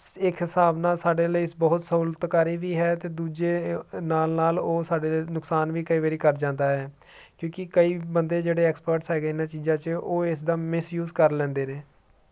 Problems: none marked